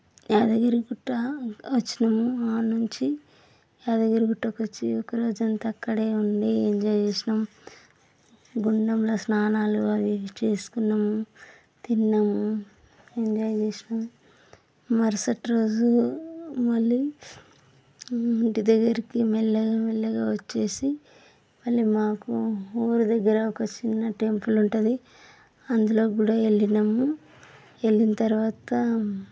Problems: constant background noise